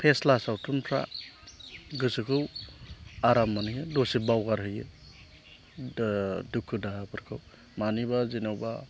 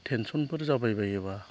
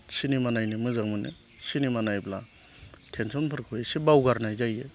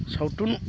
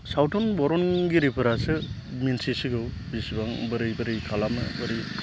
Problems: constant background noise